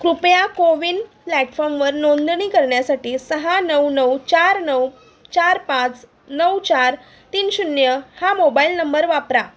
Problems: none marked